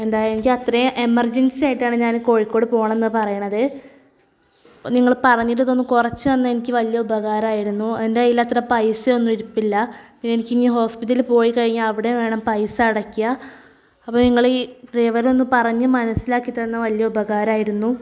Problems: none marked